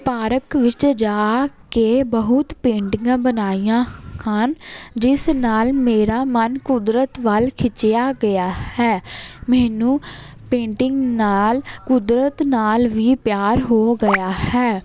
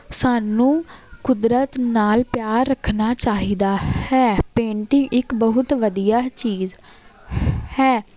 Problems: none marked